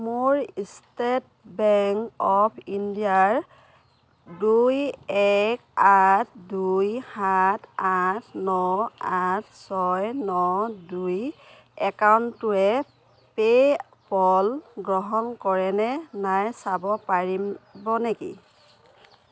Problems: none marked